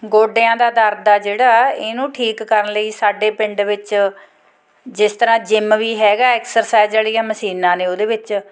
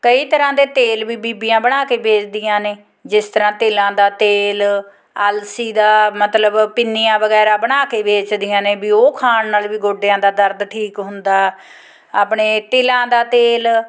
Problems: background sounds at intervals, background conversations at intervals